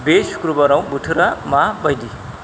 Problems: constant background noise